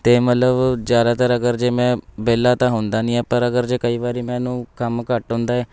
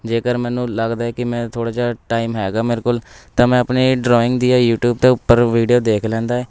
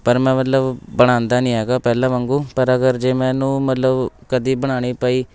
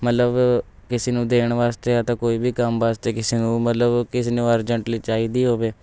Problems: background sounds at intervals, background conversations at intervals